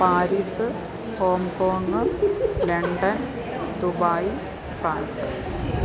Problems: continuous background conversations